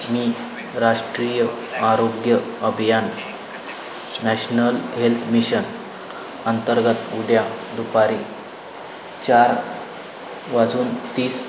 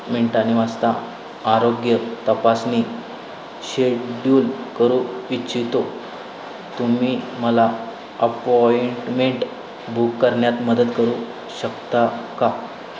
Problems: constant background noise